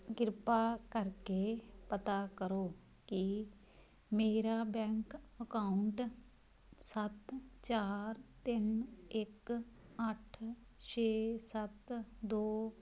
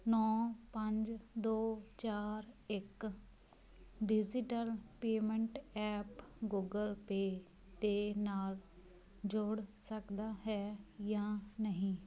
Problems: none marked